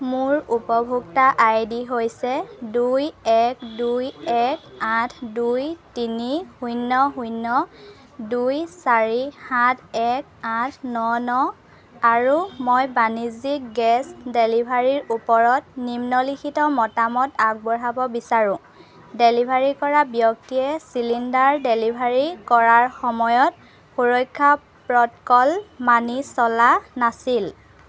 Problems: background sounds at intervals, background conversations at intervals